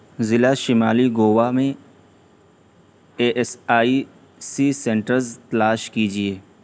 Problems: constant background noise, low volume